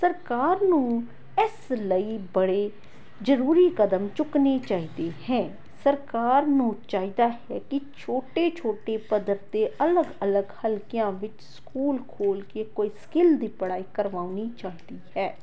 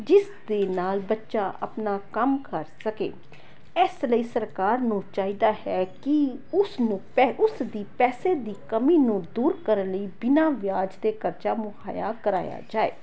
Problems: background conversations at intervals